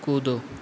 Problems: none marked